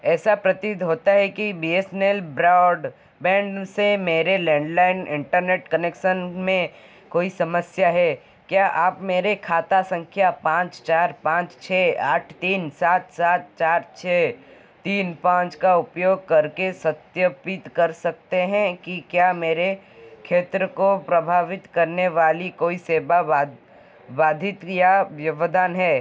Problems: constant background noise